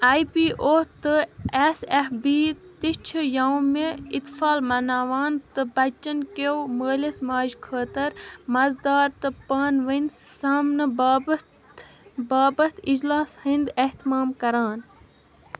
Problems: constant background noise